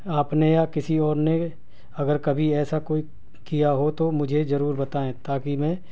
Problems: none marked